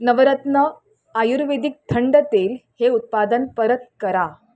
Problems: constant background noise